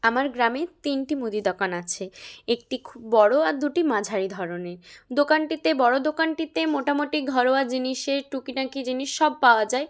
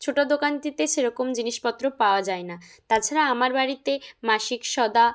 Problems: none marked